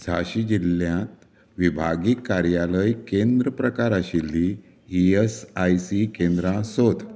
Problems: background sounds at intervals